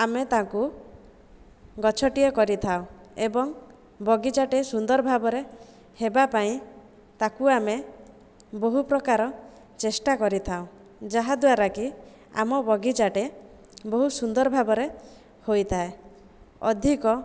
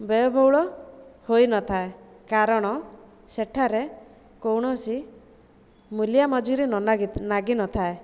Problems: none marked